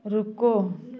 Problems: continuous background conversations